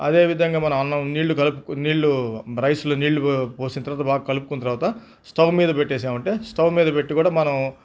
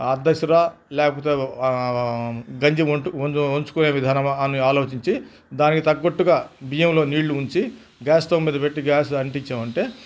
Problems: constant background noise